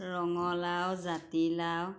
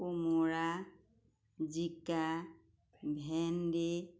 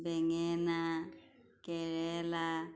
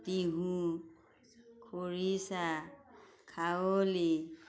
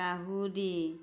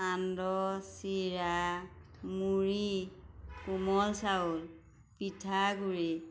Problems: constant background noise